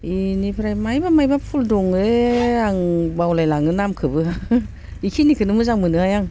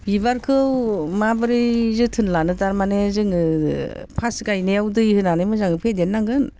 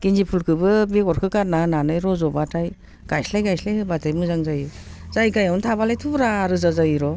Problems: constant background noise